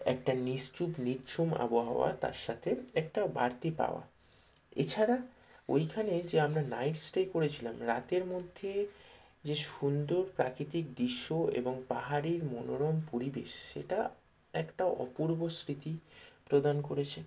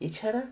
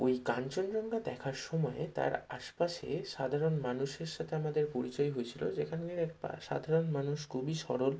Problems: none marked